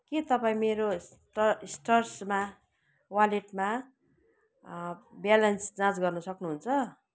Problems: none marked